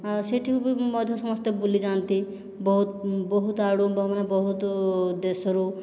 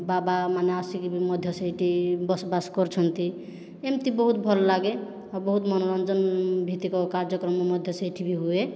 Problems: none marked